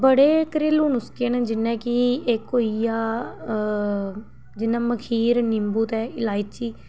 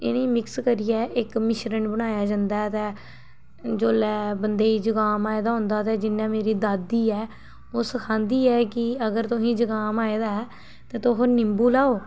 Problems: background sounds at intervals